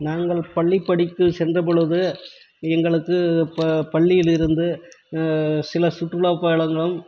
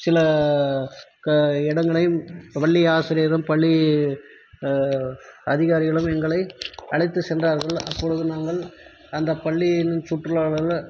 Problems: none marked